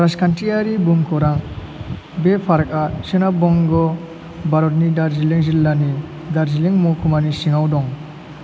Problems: constant background noise